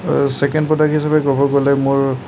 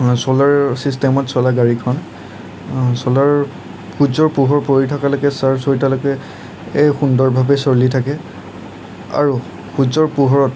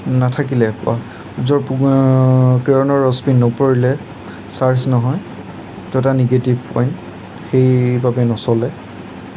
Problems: none marked